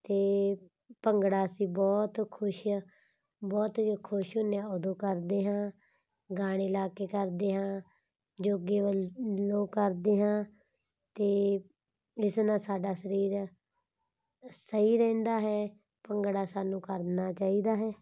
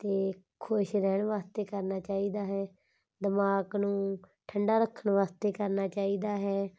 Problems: background sounds at intervals